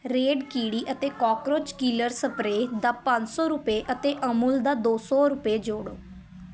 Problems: constant background noise, continuous background conversations